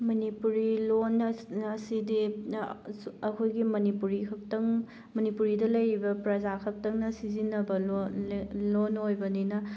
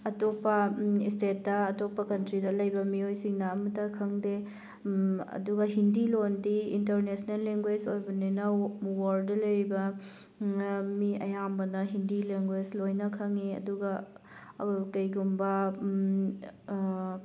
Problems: none marked